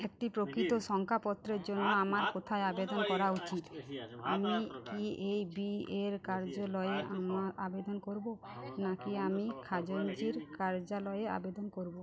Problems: continuous background conversations